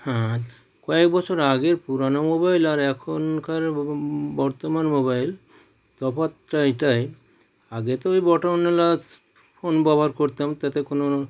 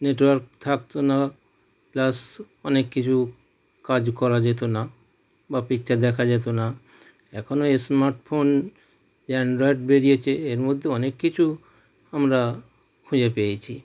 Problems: background sounds at intervals